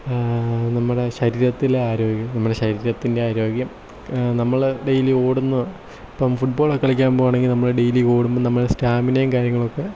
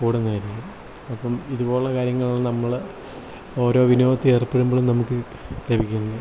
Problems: low volume